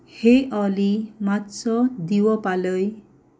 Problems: background sounds at intervals